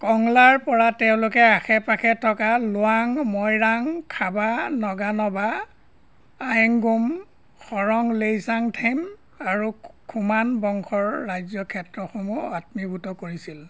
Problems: none marked